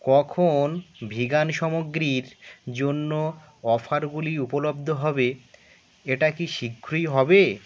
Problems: constant background noise